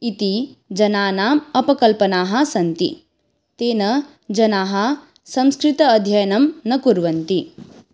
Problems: none marked